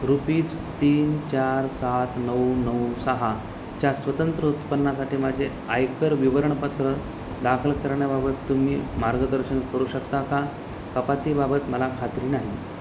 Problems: constant background noise